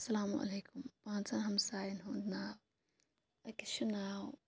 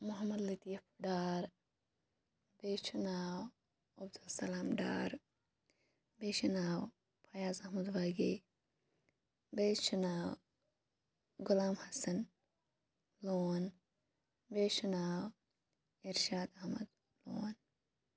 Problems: none marked